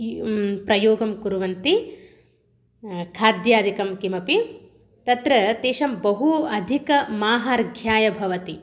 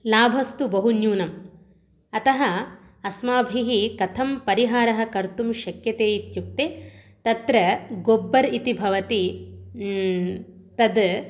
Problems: none marked